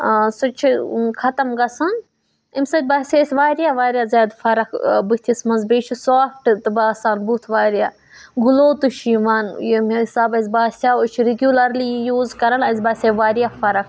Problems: none marked